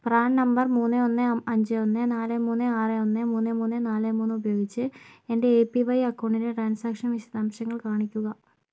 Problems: low volume